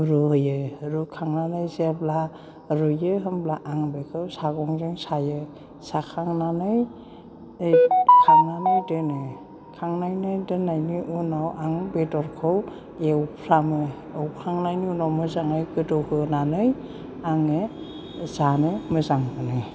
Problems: none marked